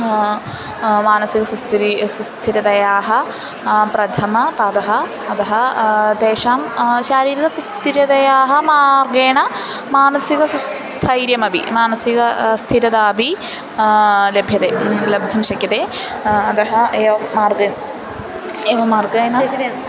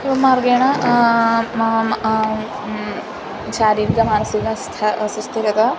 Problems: constant background noise